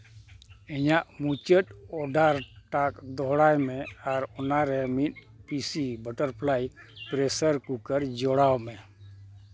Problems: constant background noise